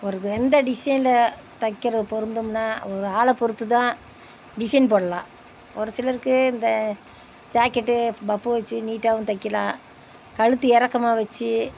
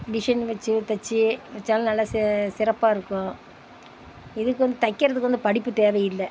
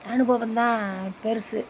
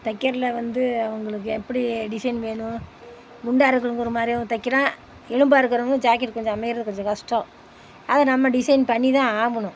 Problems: none marked